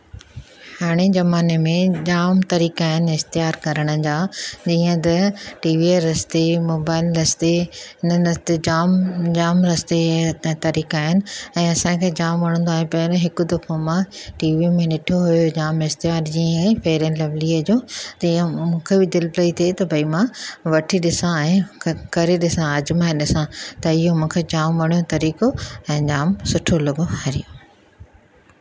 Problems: none marked